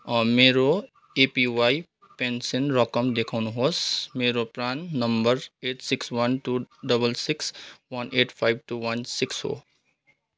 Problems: none marked